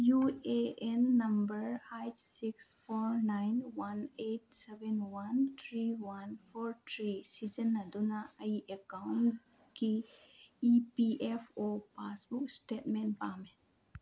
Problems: low volume